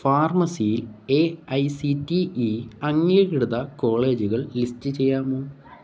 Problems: none marked